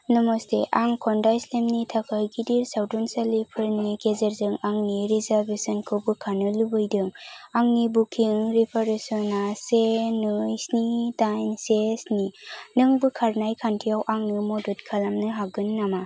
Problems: constant background noise